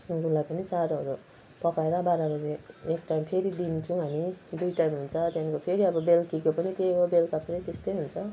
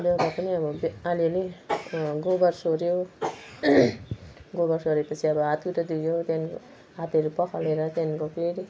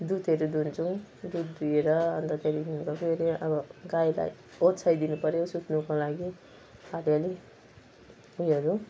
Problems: none marked